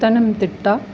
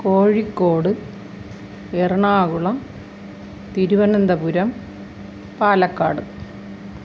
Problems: constant background noise